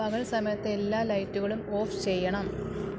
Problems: constant background noise